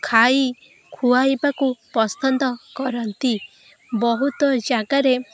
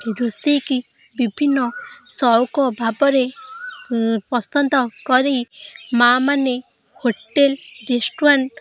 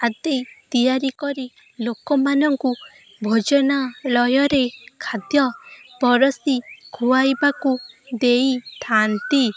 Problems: constant background noise